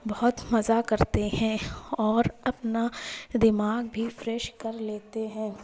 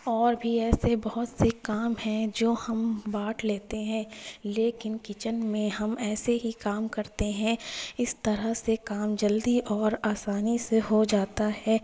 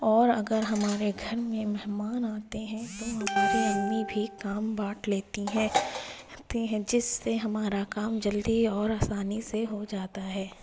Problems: constant background noise, background conversations at intervals